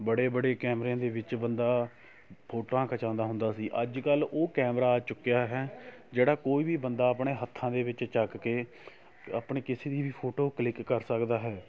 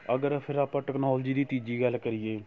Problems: none marked